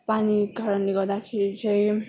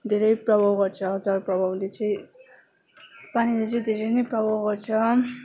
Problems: constant background noise, continuous background conversations